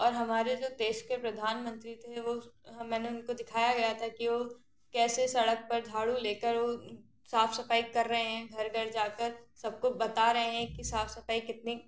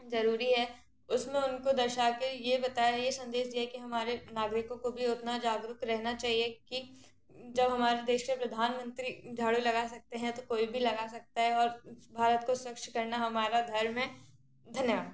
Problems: constant background noise